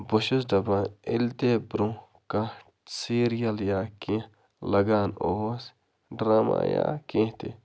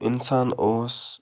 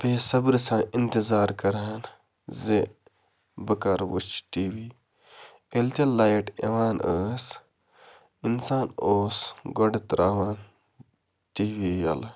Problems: constant background noise, background conversations at intervals